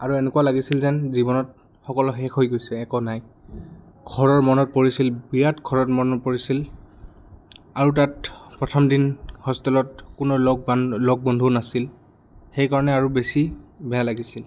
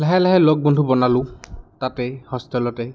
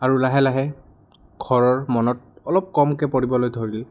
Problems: background sounds at intervals